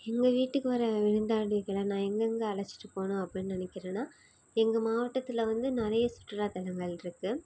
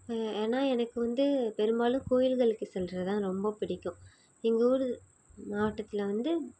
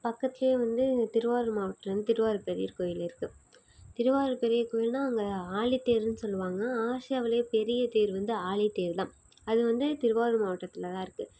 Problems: none marked